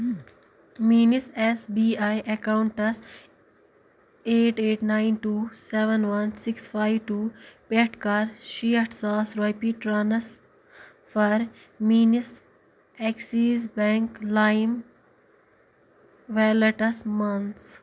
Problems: background sounds at intervals